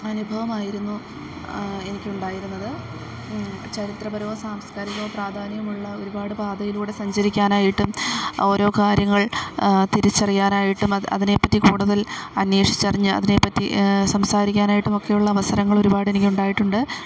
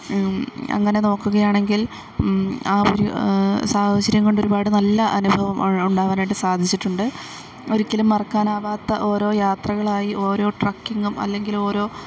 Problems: background sounds at intervals